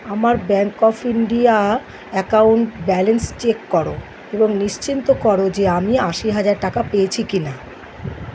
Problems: none marked